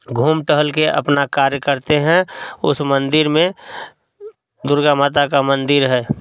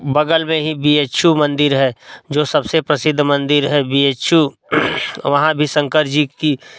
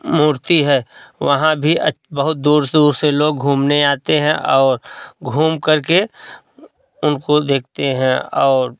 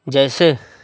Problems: background sounds at intervals